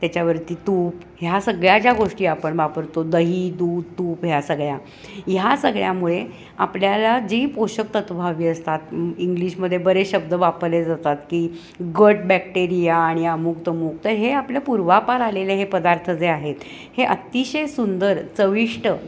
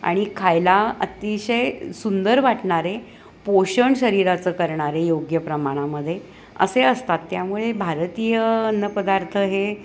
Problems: constant background noise, continuous background conversations